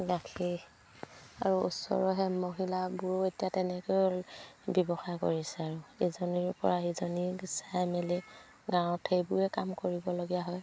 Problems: background sounds at intervals